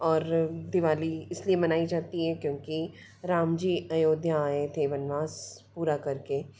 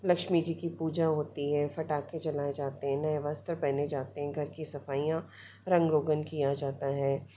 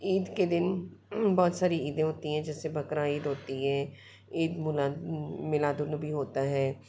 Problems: background sounds at intervals